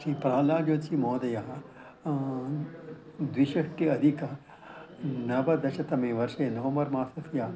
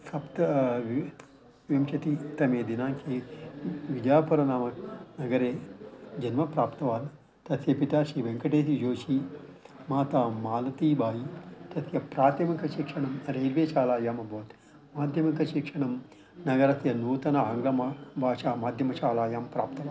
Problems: background sounds at intervals